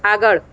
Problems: constant background noise